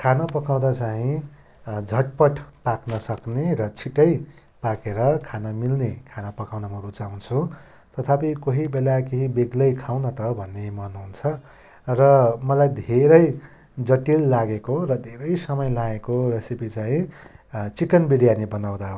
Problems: none marked